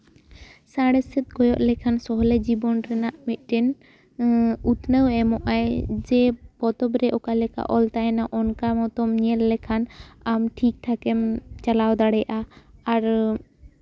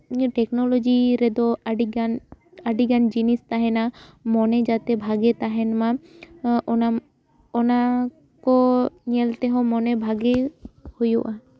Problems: background sounds at intervals, background conversations at intervals